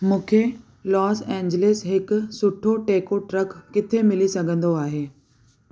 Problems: constant background noise